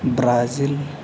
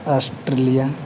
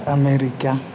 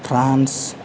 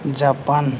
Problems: none marked